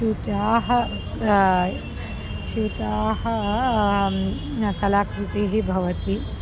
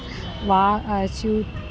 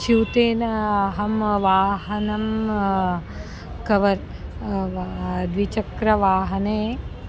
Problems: background sounds at intervals